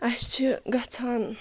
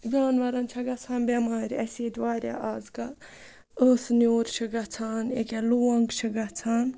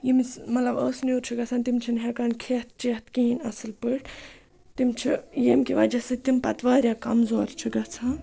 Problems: none marked